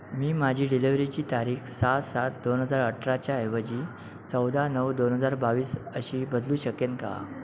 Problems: background sounds at intervals, background conversations at intervals